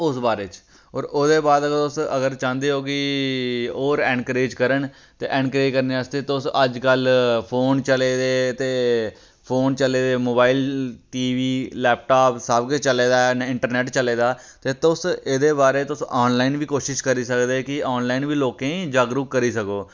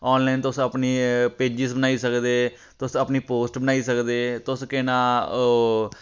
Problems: none marked